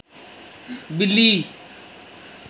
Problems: constant background noise